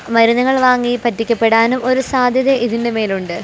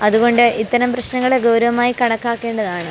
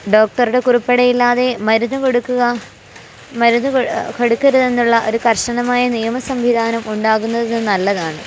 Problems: constant background noise